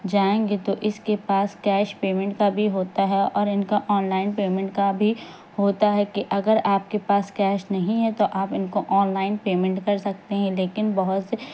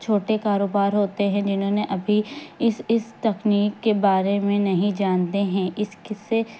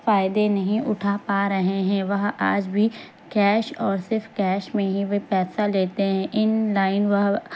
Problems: constant background noise